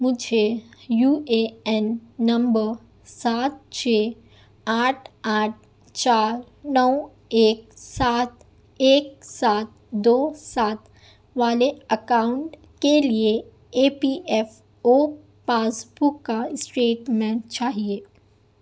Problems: none marked